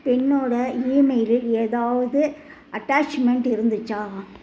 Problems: none marked